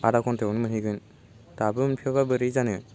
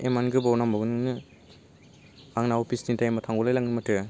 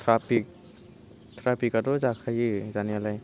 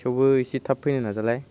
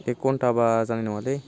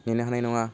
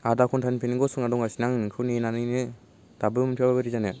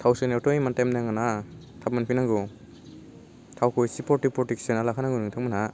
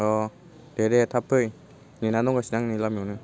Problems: none marked